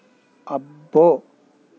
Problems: constant background noise